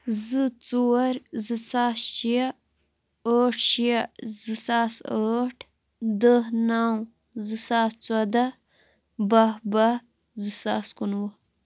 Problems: none marked